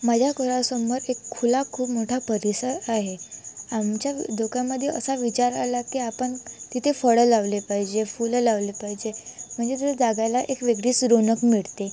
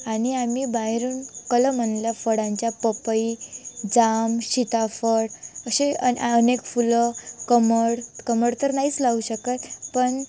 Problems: none marked